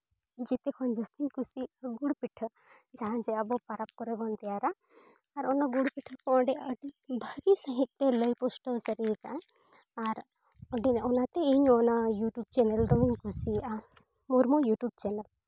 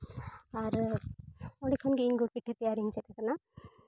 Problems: none marked